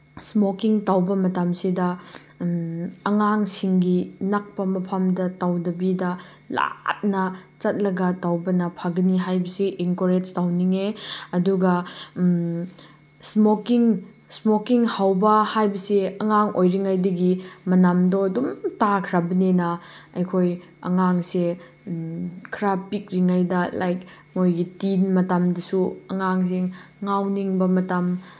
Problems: none marked